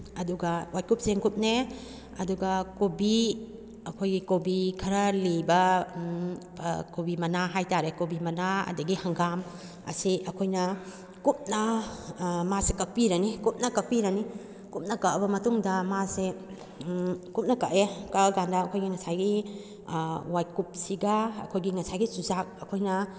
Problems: background conversations at intervals